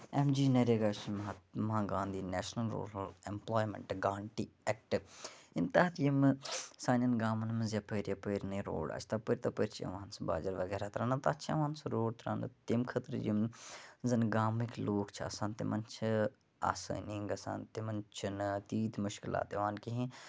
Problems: none marked